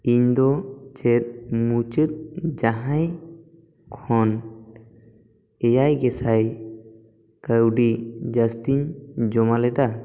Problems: echo